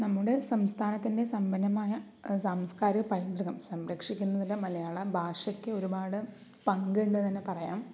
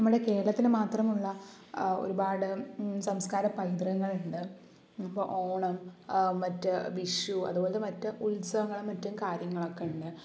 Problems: low volume